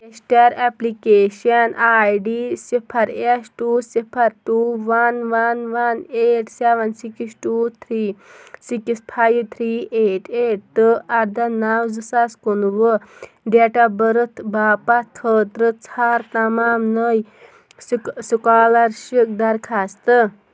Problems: background sounds at intervals